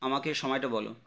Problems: constant background noise